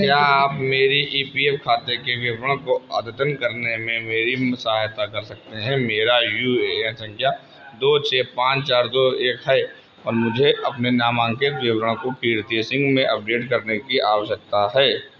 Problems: constant background noise